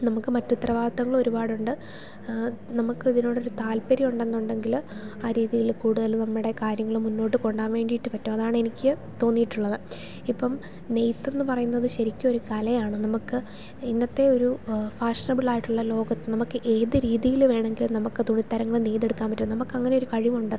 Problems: none marked